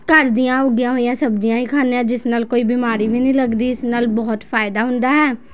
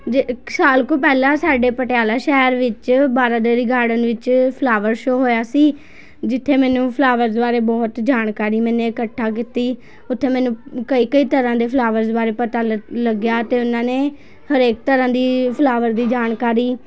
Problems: constant background noise, continuous background conversations